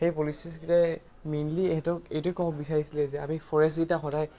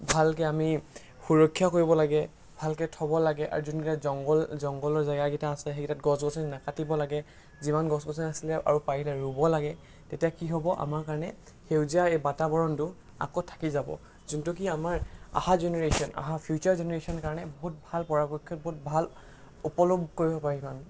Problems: background sounds at intervals